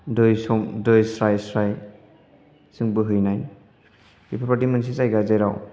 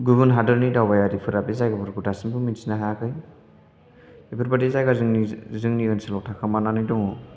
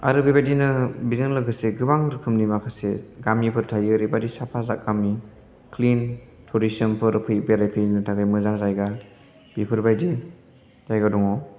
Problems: none marked